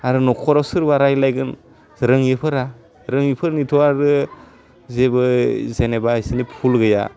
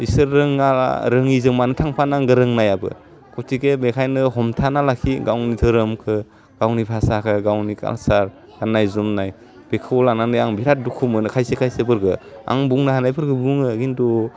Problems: none marked